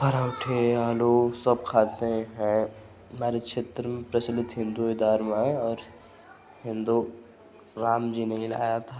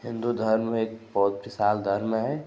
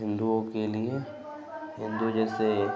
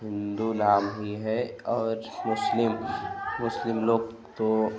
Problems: constant background noise